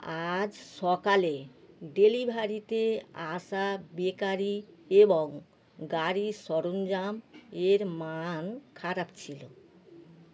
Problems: constant background noise